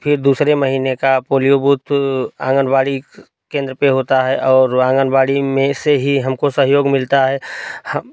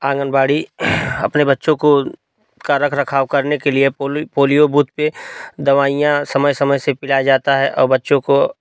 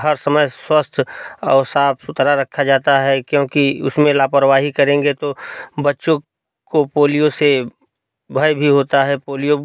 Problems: none marked